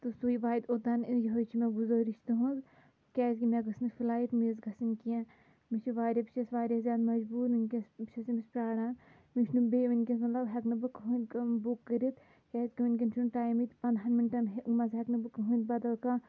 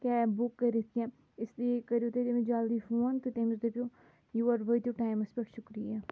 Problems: constant background noise